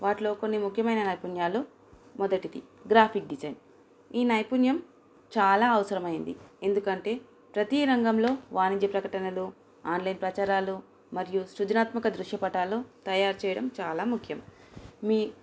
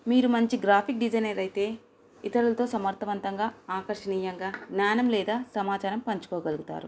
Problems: constant background noise